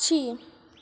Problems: constant background noise, echo